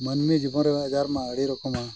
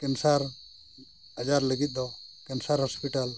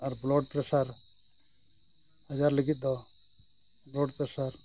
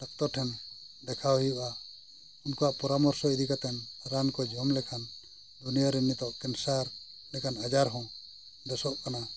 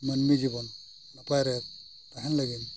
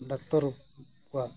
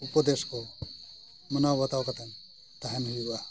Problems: constant background noise, background conversations at intervals